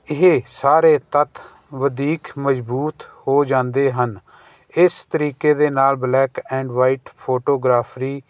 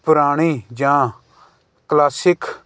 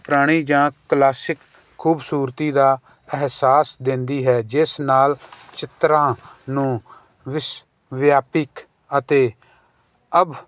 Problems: none marked